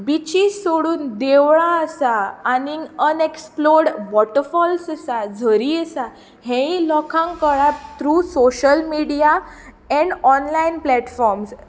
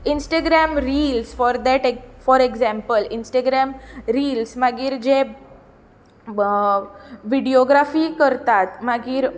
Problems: constant background noise, continuous background conversations